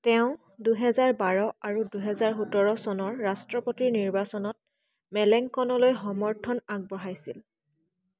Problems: constant background noise, background conversations at intervals